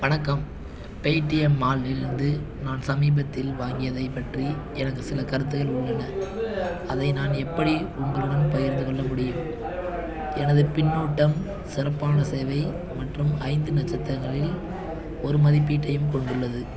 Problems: background sounds at intervals